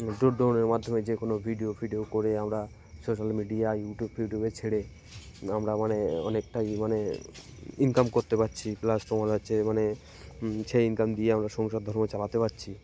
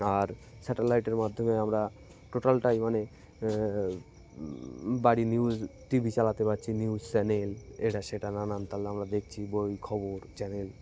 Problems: background sounds at intervals, background conversations at intervals